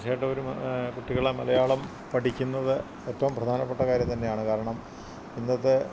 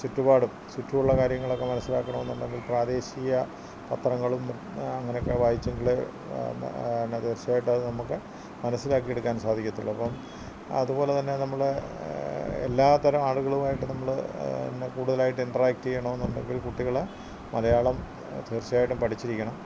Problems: constant background noise, low volume